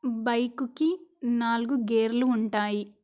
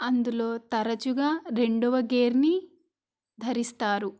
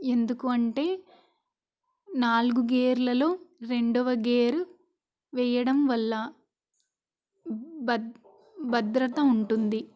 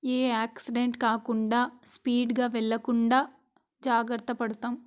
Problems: constant background noise